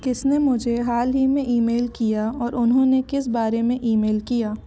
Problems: constant background noise, background conversations at intervals